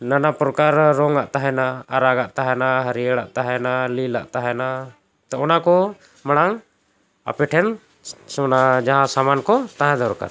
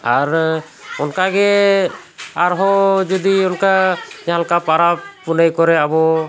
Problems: background sounds at intervals